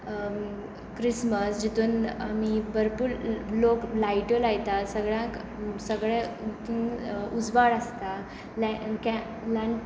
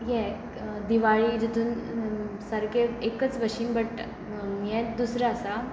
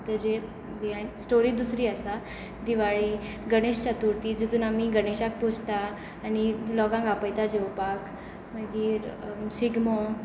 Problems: none marked